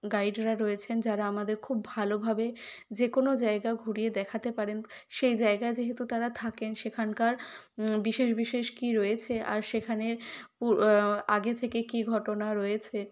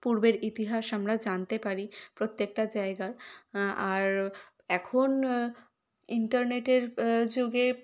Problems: constant background noise